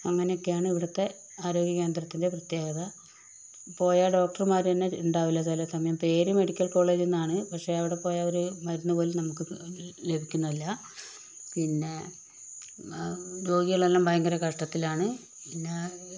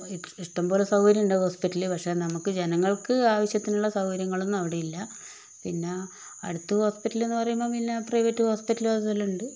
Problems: constant background noise, low volume